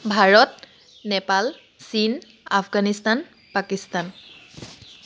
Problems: constant background noise